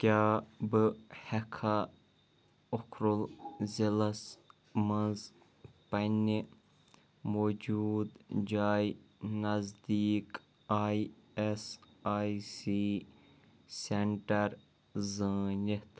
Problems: background sounds at intervals